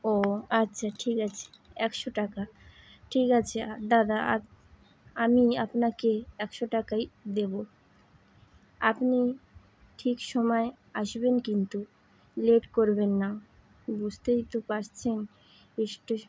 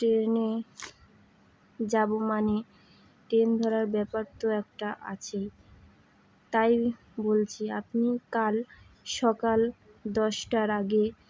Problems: constant background noise